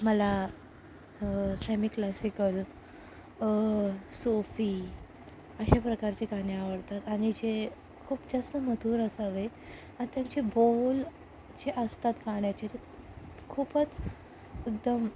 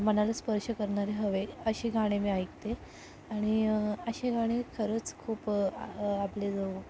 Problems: background sounds at intervals, low volume